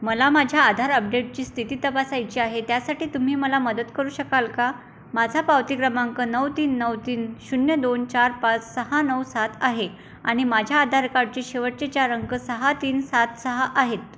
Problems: constant background noise